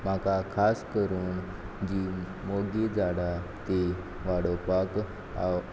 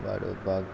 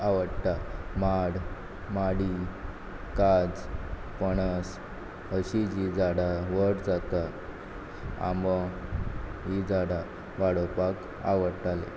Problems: background sounds at intervals